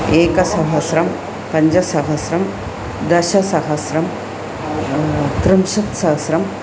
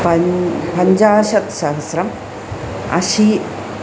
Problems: constant background noise